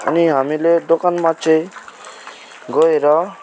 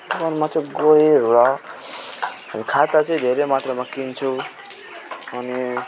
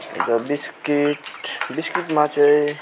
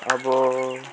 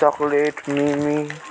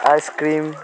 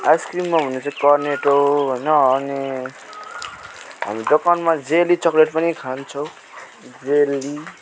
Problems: constant background noise